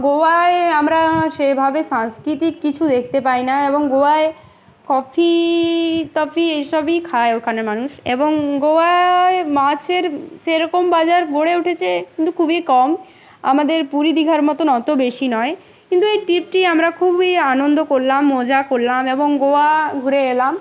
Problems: constant background noise, continuous background conversations